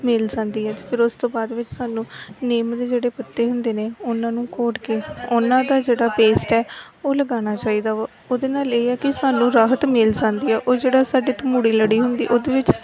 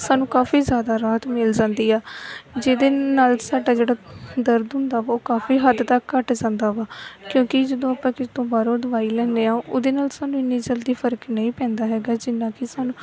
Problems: background sounds at intervals